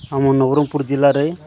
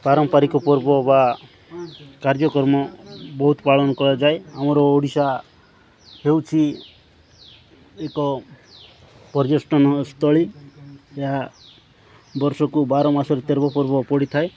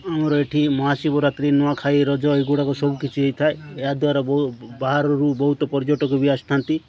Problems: continuous background conversations